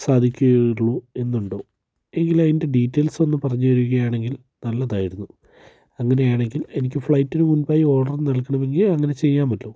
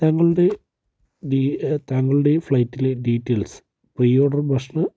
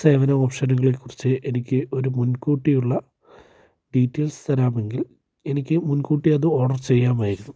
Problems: low volume